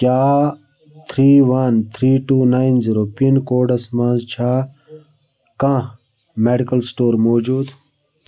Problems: background sounds at intervals